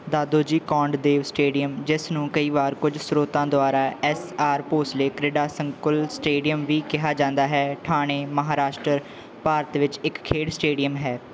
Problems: background conversations at intervals